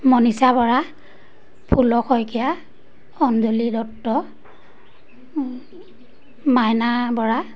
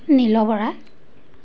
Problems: none marked